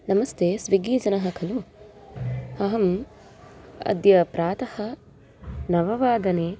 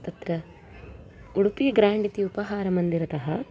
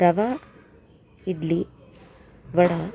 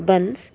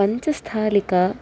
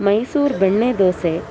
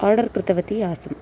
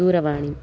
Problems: constant background noise, continuous background conversations